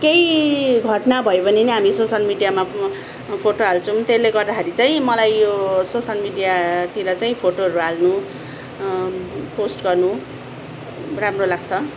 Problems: background sounds at intervals